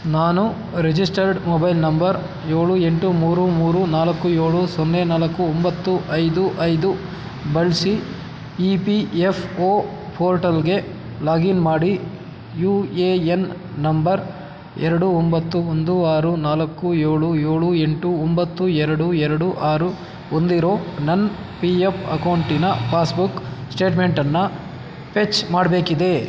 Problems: none marked